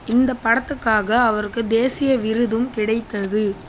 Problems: constant background noise